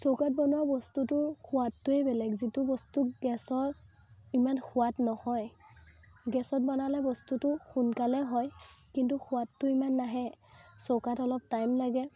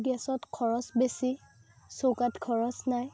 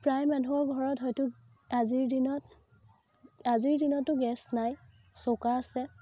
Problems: constant background noise